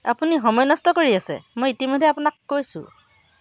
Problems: constant background noise